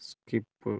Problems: low volume